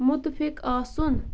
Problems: constant background noise